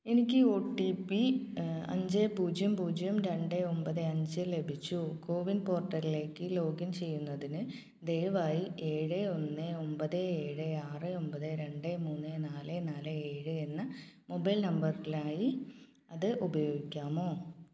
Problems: low volume